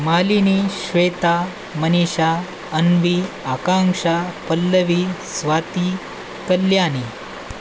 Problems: constant background noise